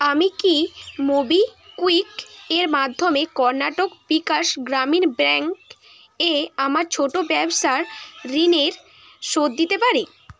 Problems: constant background noise